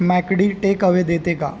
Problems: constant background noise